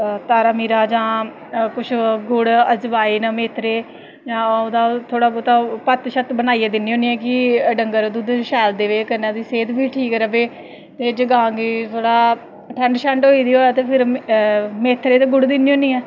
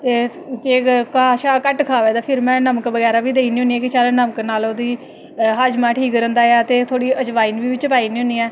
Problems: constant background noise